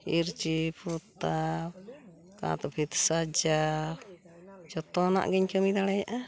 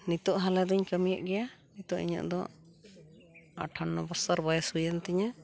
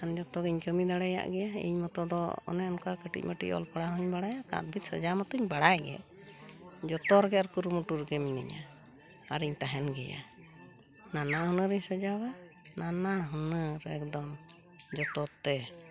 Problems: background sounds at intervals